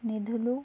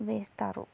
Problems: none marked